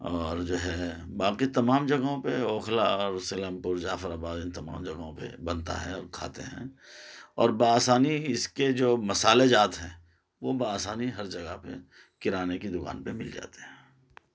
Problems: none marked